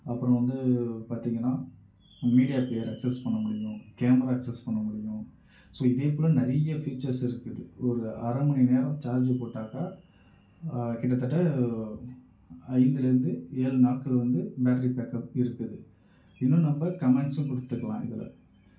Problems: echo, low volume